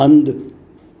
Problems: constant background noise, echo